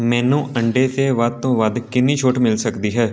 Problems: continuous background conversations